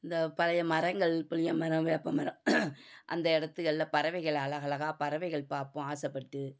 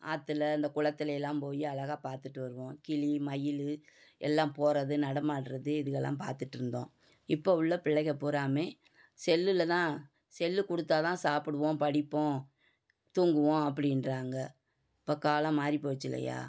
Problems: none marked